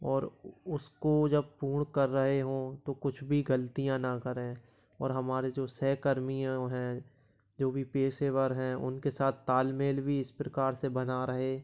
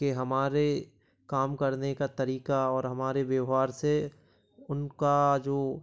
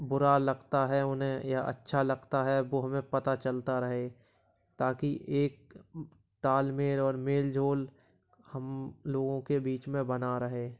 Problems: none marked